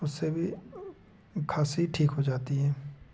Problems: low volume